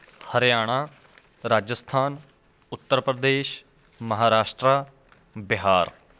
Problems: none marked